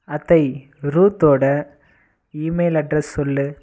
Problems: constant background noise